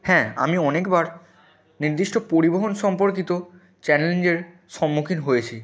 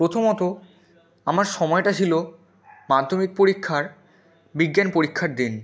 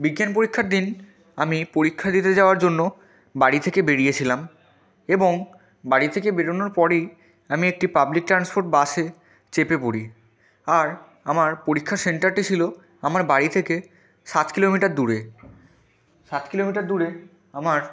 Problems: constant background noise, continuous background conversations